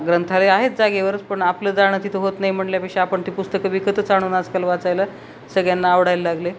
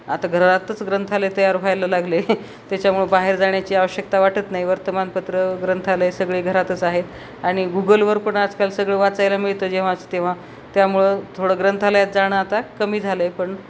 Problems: none marked